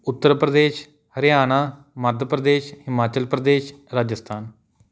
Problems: none marked